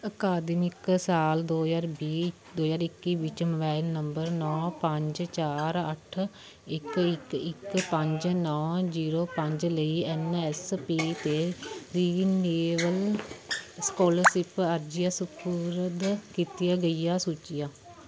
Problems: continuous background conversations